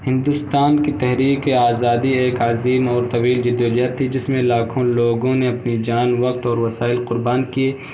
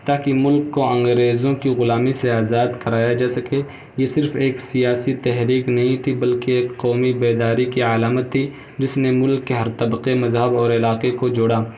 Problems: constant background noise